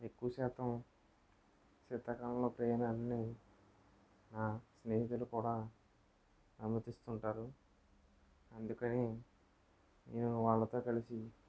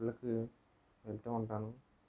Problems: low volume